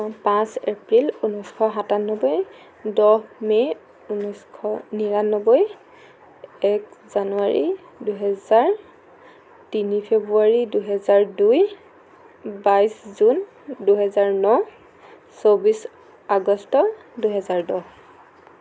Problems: constant background noise